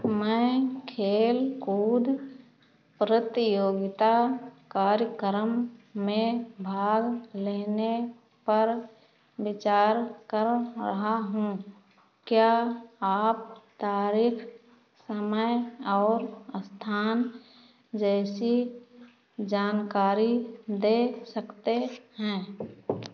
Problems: constant background noise